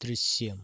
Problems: none marked